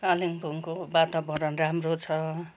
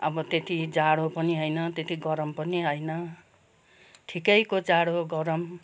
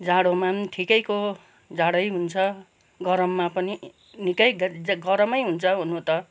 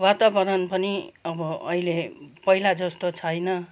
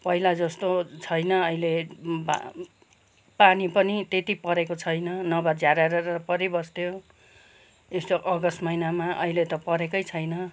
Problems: constant background noise